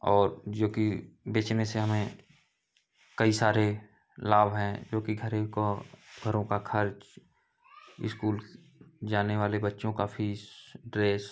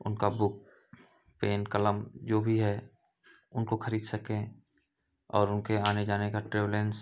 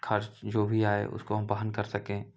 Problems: none marked